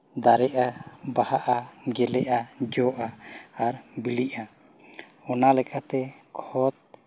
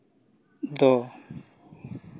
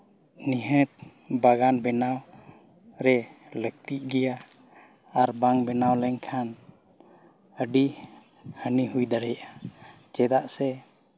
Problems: background sounds at intervals